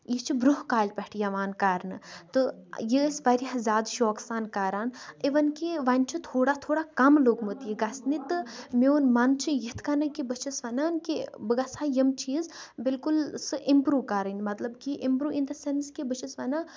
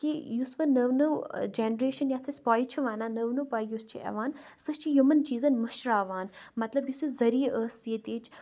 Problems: none marked